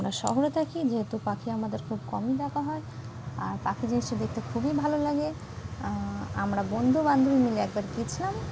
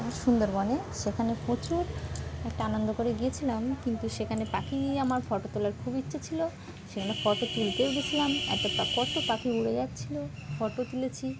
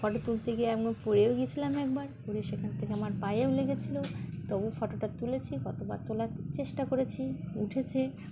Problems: constant background noise